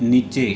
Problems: none marked